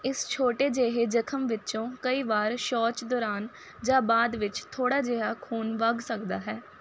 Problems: constant background noise